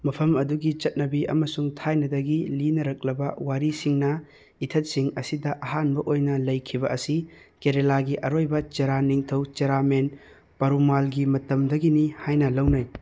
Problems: none marked